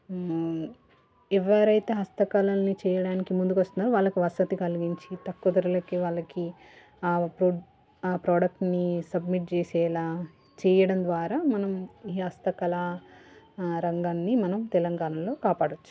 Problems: background conversations at intervals